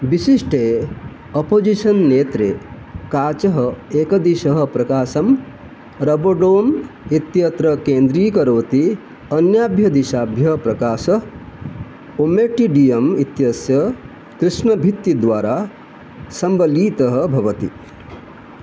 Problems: none marked